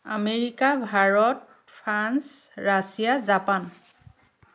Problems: none marked